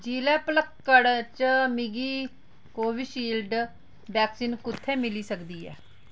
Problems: constant background noise